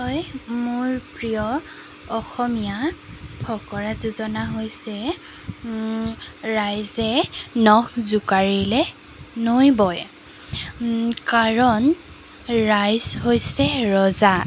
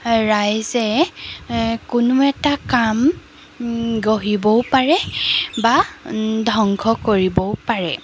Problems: background sounds at intervals